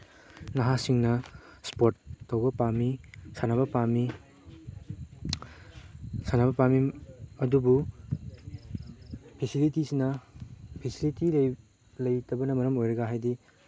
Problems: background sounds at intervals, background conversations at intervals